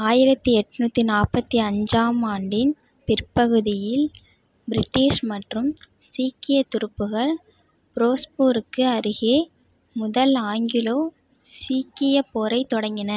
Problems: none marked